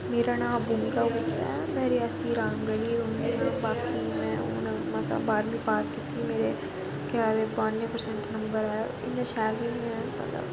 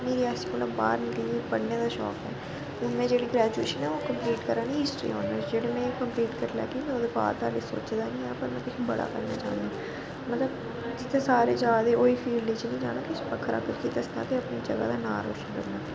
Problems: constant background noise